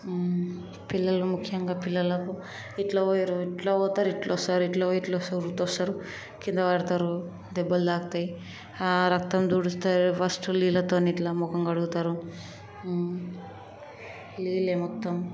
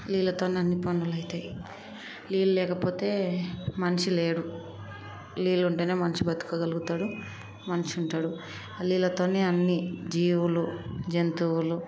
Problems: constant background noise, background conversations at intervals